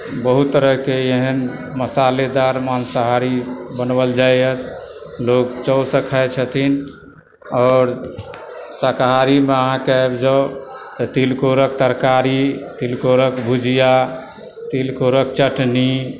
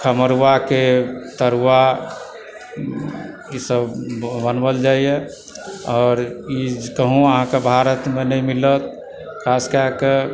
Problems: constant background noise, background conversations at intervals